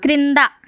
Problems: continuous background conversations